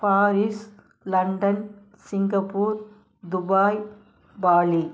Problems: none marked